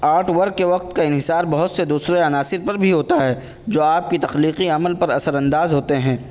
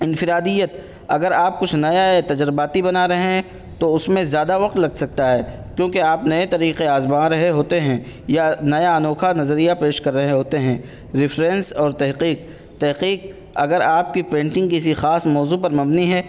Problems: constant background noise